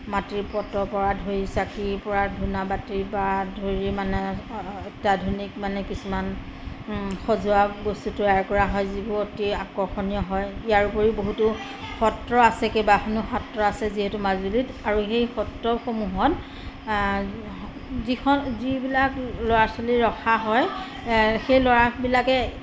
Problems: constant background noise